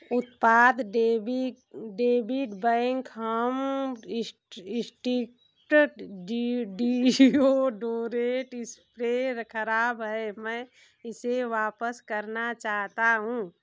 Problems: constant background noise